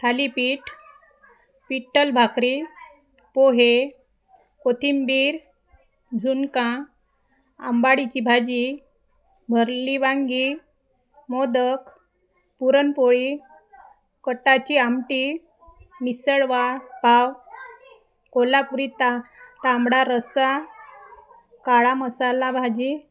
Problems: constant background noise, continuous background conversations